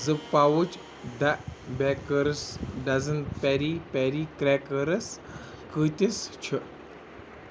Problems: none marked